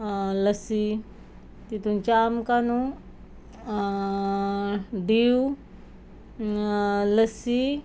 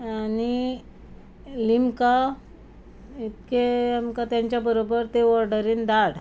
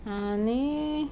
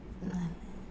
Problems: constant background noise